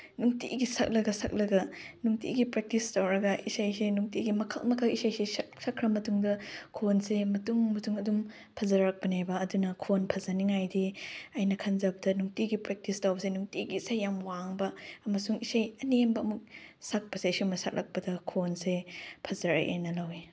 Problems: background sounds at intervals